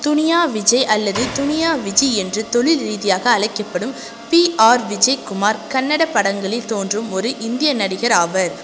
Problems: constant background noise